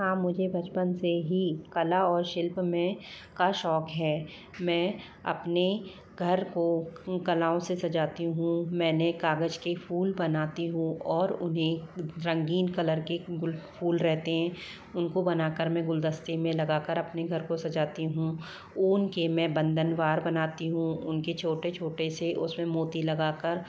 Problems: low volume